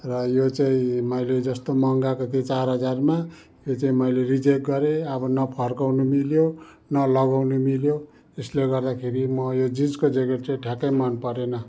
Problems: background sounds at intervals